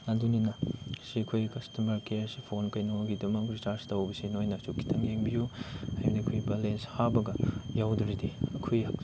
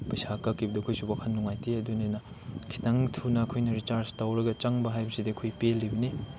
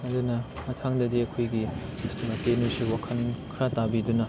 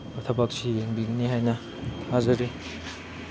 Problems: constant background noise